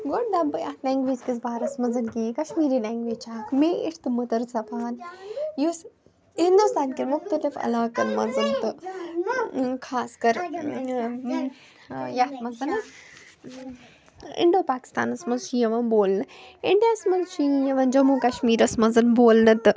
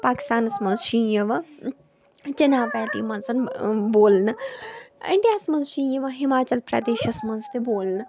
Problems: background sounds at intervals, background conversations at intervals